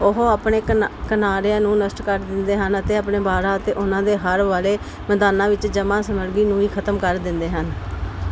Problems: constant background noise